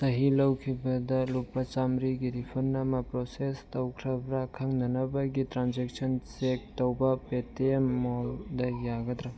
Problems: background conversations at intervals